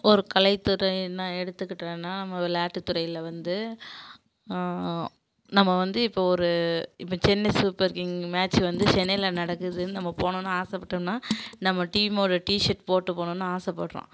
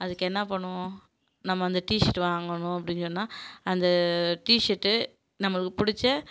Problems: background sounds at intervals